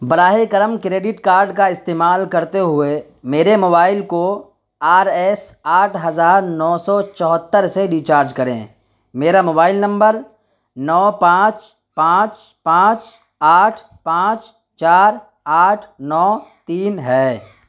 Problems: constant background noise